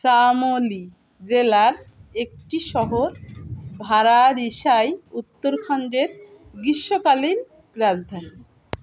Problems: continuous background conversations